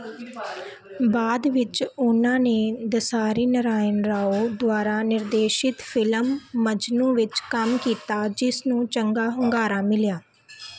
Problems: constant background noise, background conversations at intervals